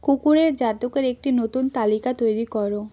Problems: constant background noise